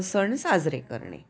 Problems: background sounds at intervals, background conversations at intervals